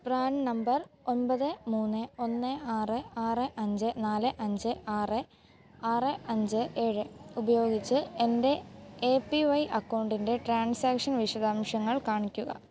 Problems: background sounds at intervals